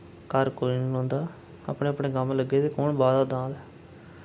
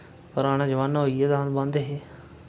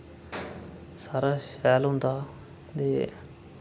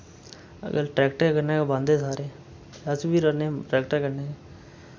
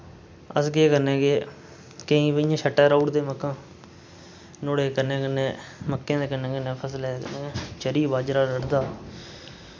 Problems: none marked